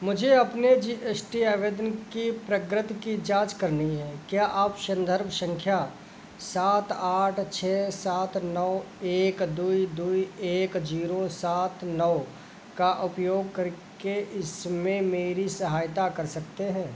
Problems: none marked